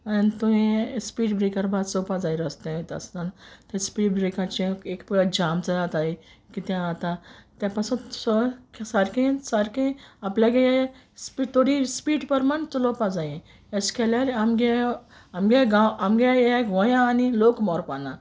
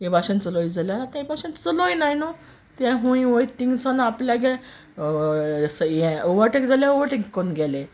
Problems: background sounds at intervals